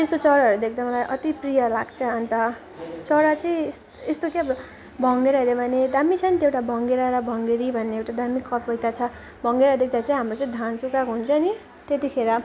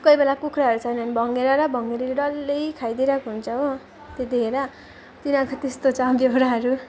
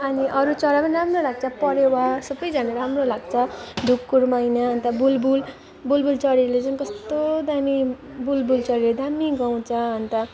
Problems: none marked